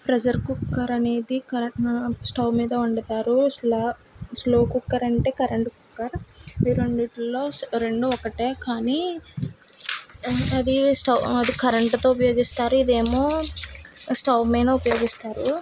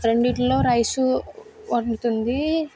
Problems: background sounds at intervals